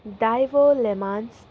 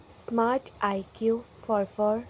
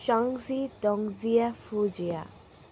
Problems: constant background noise